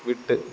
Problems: none marked